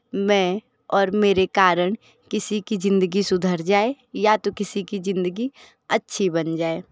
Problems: background sounds at intervals